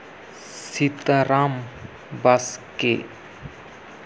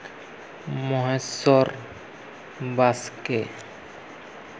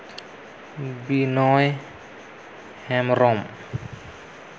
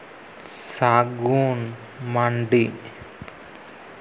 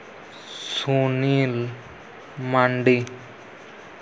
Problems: constant background noise